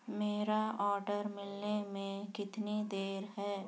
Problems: none marked